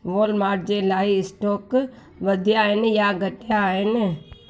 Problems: constant background noise